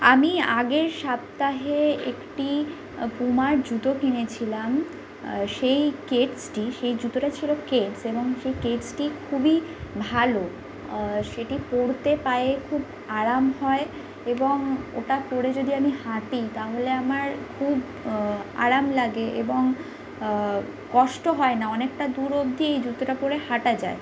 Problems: constant background noise